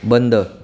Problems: background sounds at intervals